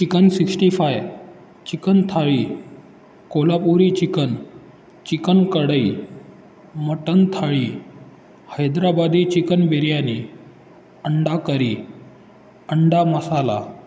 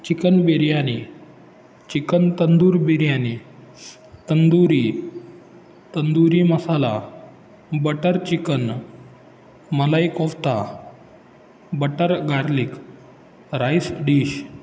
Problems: background sounds at intervals